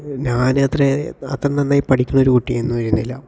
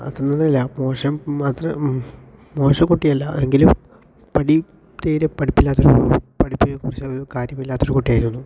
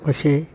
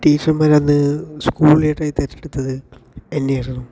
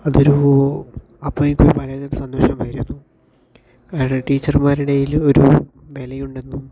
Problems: none marked